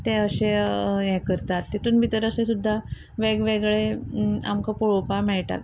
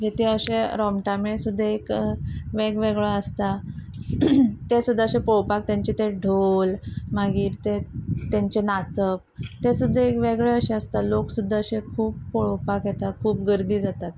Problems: constant background noise